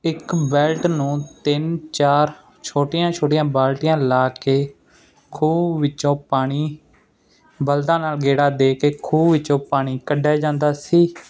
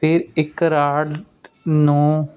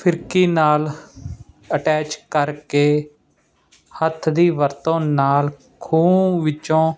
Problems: constant background noise